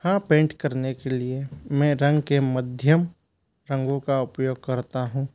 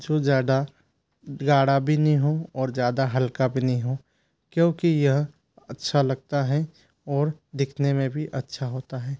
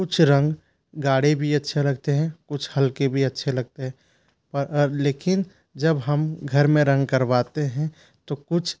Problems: constant background noise